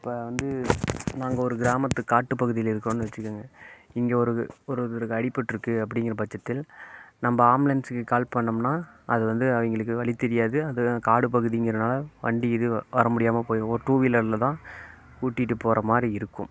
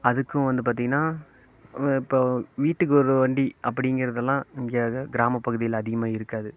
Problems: constant background noise